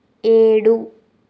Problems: constant background noise